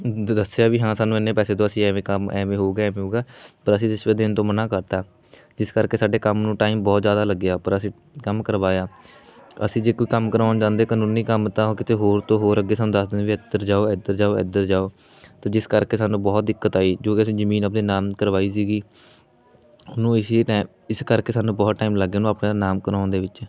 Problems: constant background noise